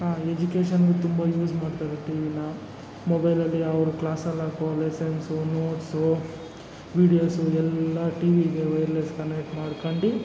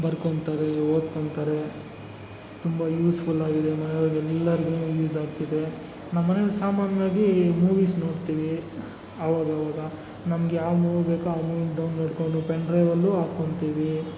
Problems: background sounds at intervals